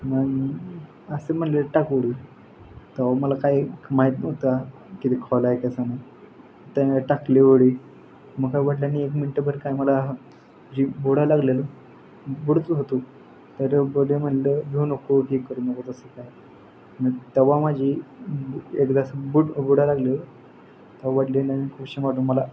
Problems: constant background noise